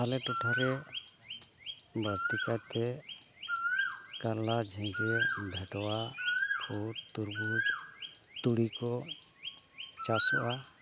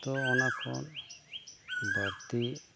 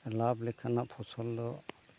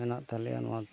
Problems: none marked